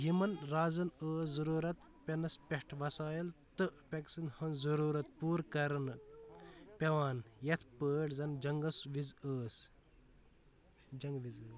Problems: background sounds at intervals